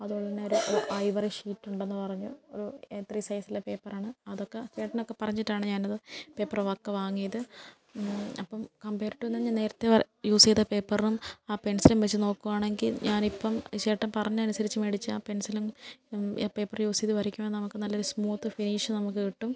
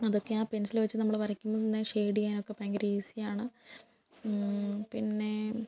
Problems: low volume